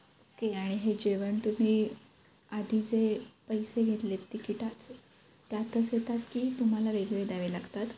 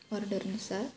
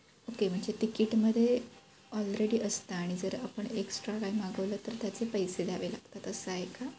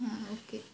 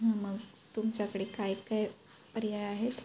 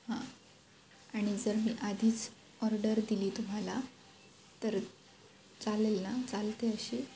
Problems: none marked